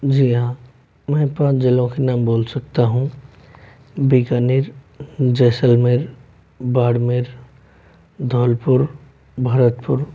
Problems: background sounds at intervals